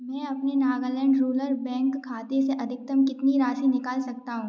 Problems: background sounds at intervals